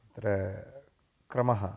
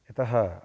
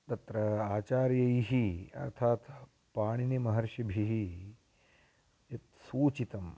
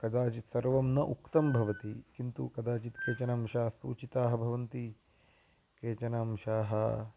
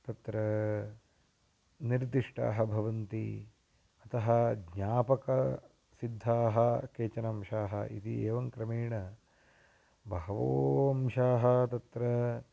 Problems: none marked